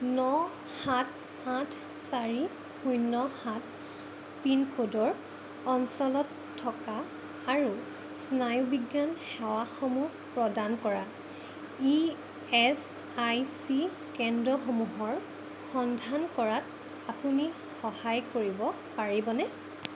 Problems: constant background noise